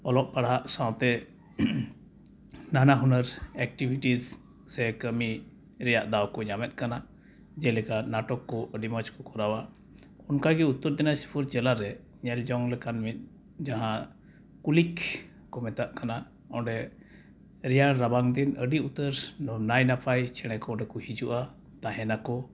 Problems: none marked